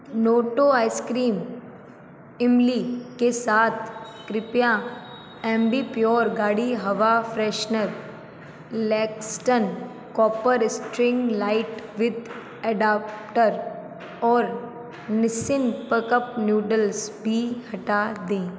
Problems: background sounds at intervals